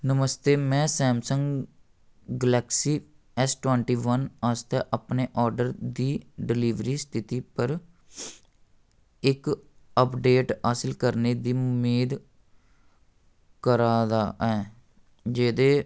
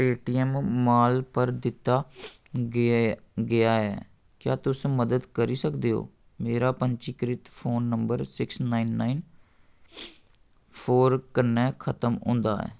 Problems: none marked